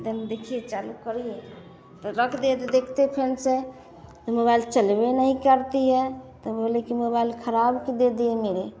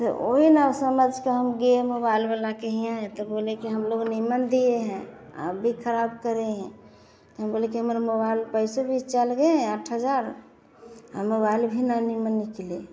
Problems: none marked